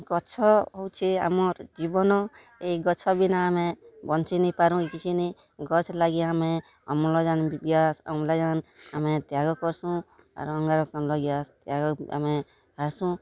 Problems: background sounds at intervals, background conversations at intervals